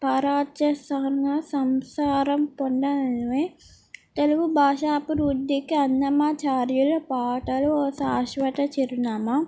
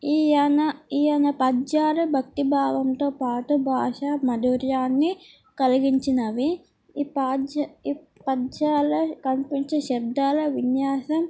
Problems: none marked